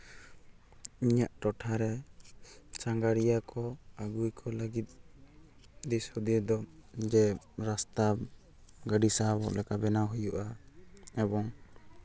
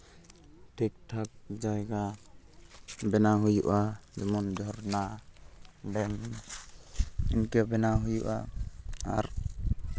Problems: background sounds at intervals